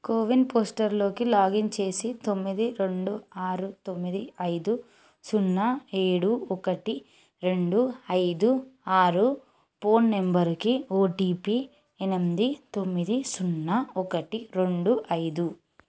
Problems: background sounds at intervals